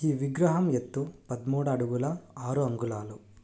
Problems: low volume